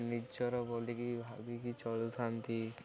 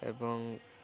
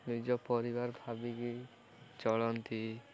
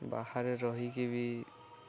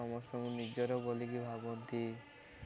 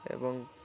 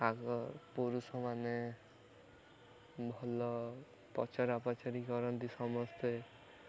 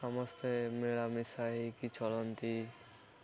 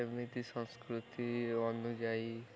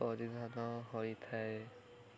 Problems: continuous background conversations